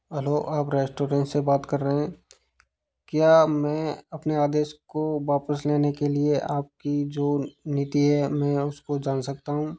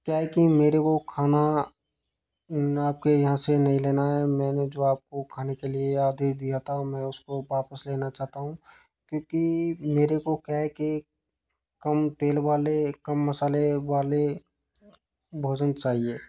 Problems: constant background noise